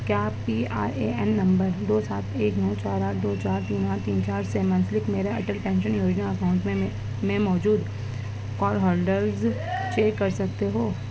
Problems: constant background noise, background conversations at intervals, low volume